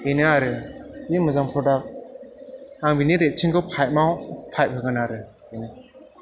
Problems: background sounds at intervals